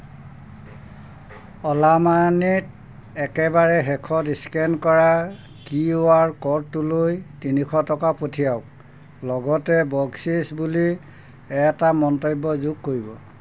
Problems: constant background noise